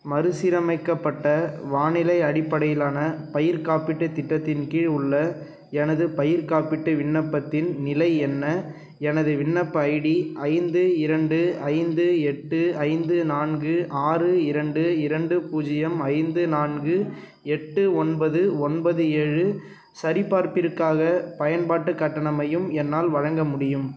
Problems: none marked